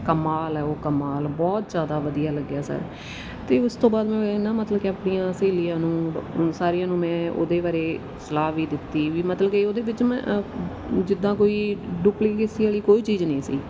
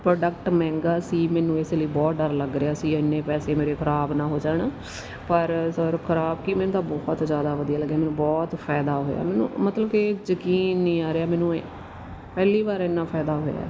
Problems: constant background noise